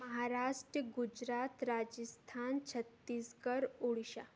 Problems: none marked